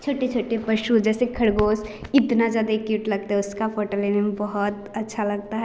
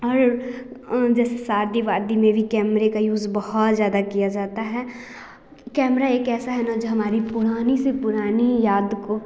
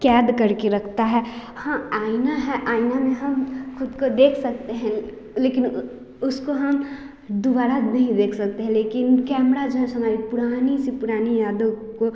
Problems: constant background noise